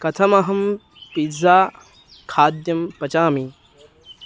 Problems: constant background noise